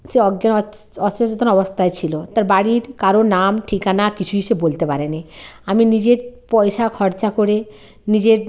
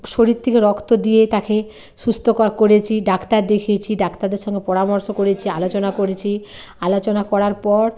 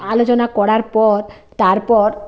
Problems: constant background noise, background conversations at intervals